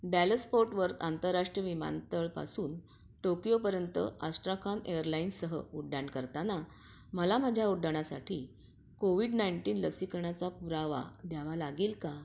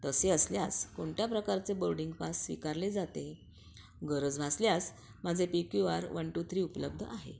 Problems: none marked